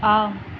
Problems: constant background noise, background conversations at intervals